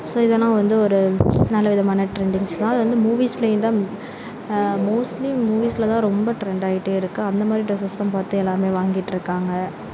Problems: constant background noise